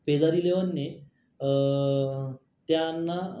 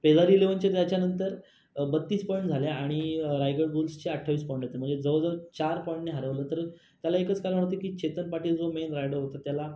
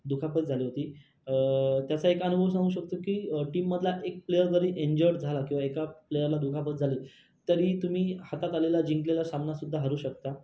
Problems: constant background noise